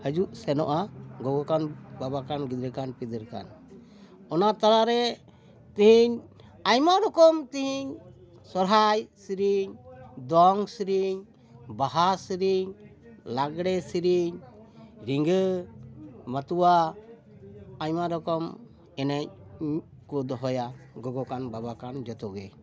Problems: background conversations at intervals